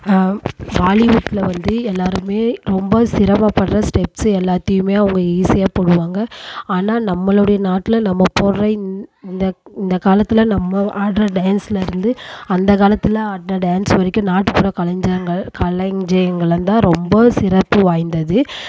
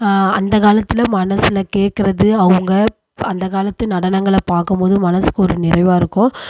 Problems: constant background noise